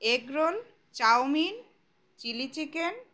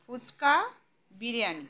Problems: background sounds at intervals